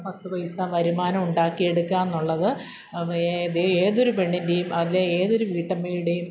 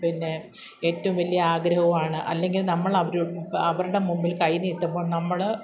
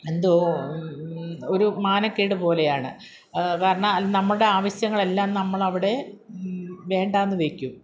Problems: none marked